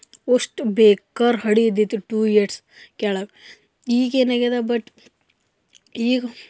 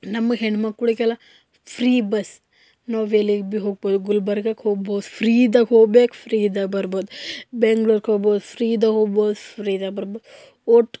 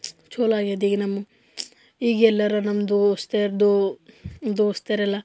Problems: none marked